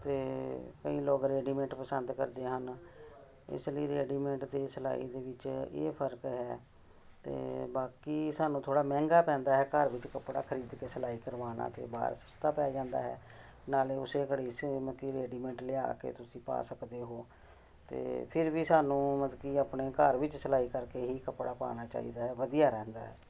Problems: background sounds at intervals